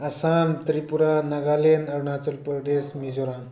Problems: background conversations at intervals